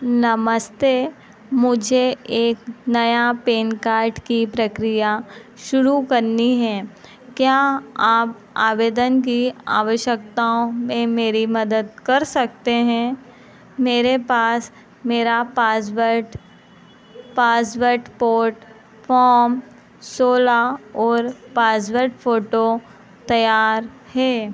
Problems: none marked